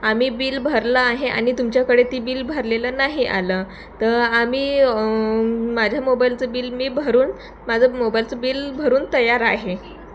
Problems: none marked